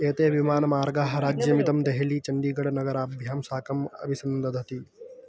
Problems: continuous background conversations